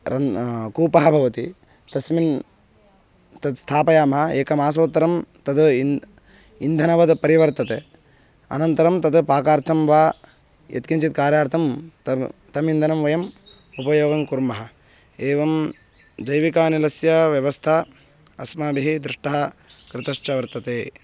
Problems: constant background noise